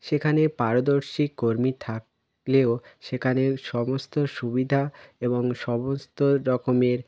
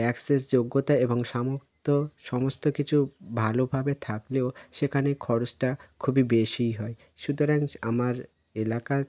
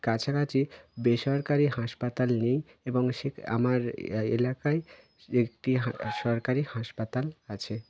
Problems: none marked